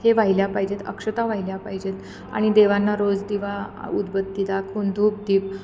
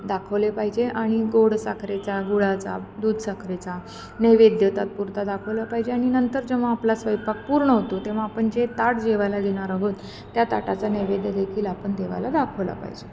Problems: none marked